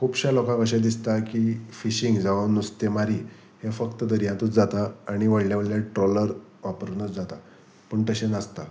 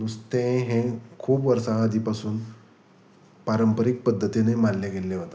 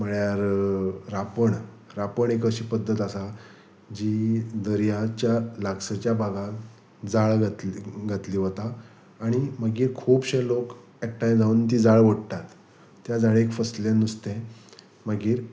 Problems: none marked